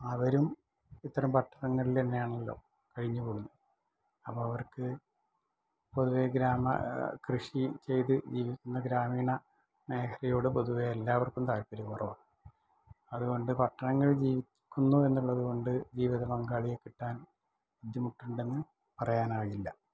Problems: low volume